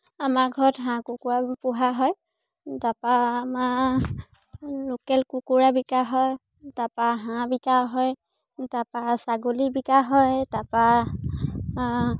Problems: none marked